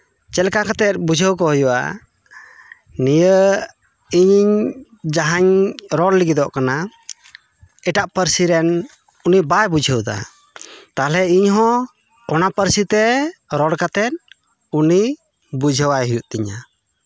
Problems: none marked